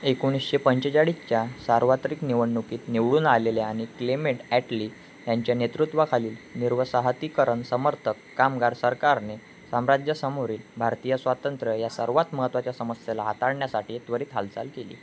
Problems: none marked